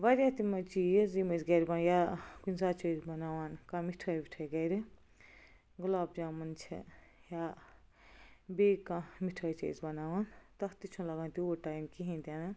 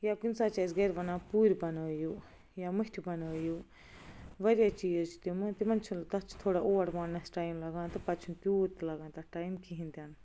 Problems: none marked